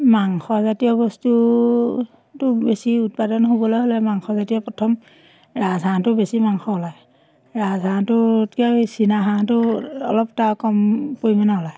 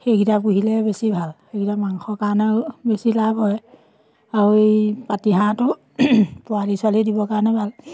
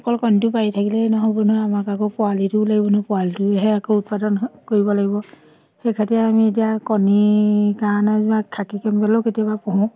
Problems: constant background noise, background conversations at intervals